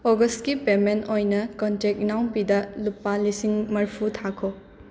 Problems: constant background noise